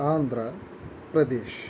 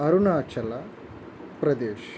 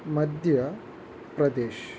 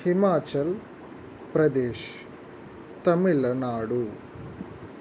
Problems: constant background noise